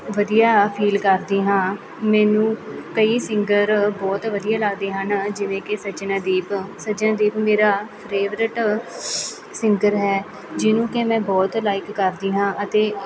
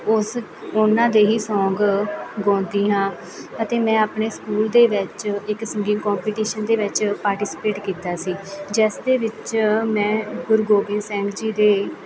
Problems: none marked